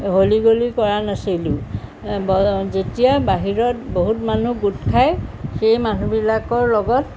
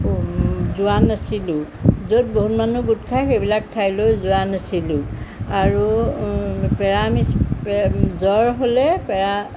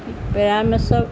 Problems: constant background noise